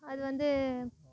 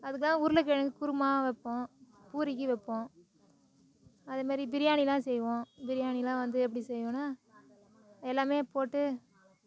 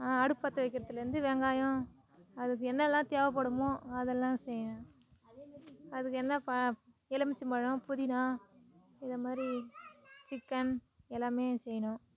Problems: background conversations at intervals